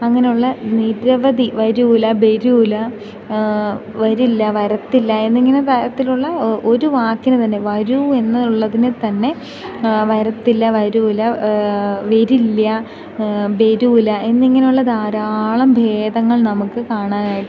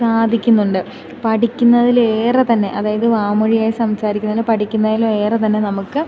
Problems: constant background noise, low volume